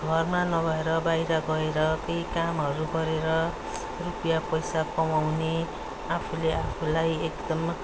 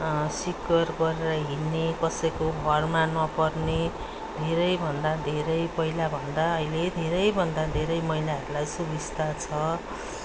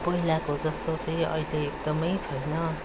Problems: background sounds at intervals